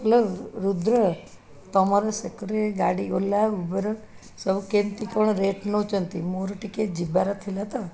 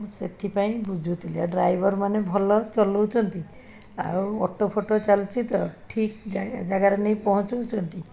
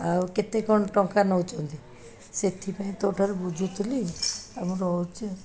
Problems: background conversations at intervals